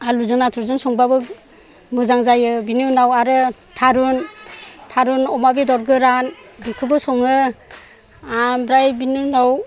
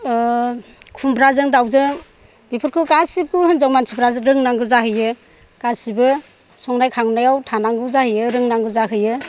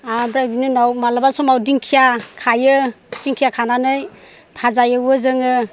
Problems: low volume